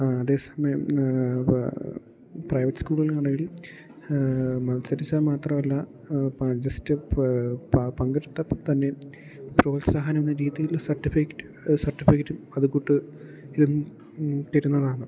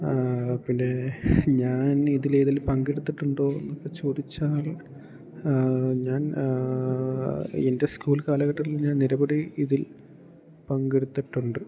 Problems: none marked